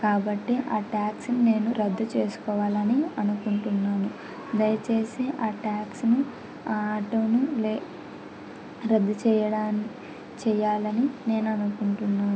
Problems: constant background noise